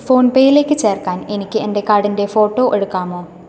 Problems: constant background noise